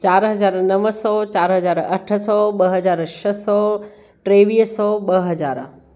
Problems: none marked